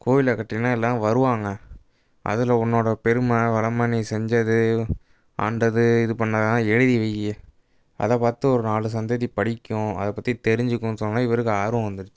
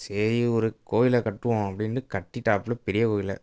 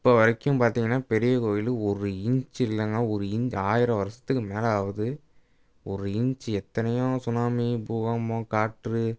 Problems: none marked